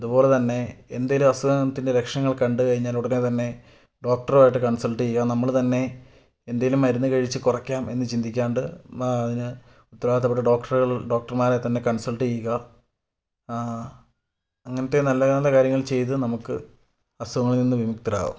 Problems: none marked